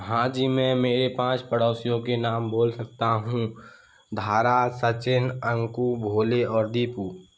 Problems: none marked